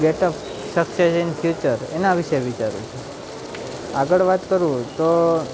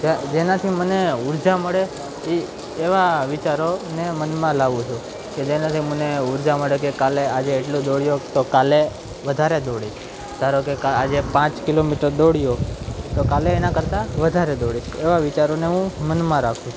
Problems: none marked